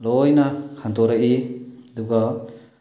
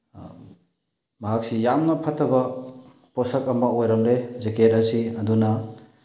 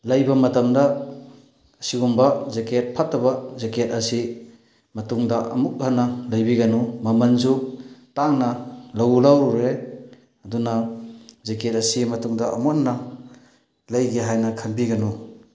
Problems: background sounds at intervals